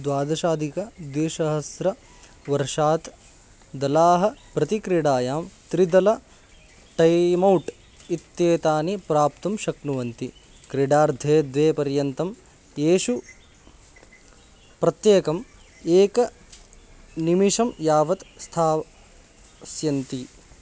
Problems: constant background noise